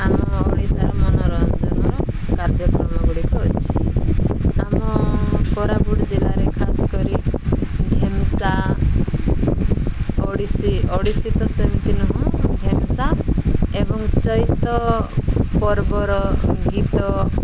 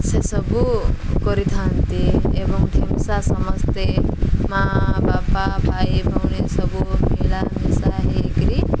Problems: none marked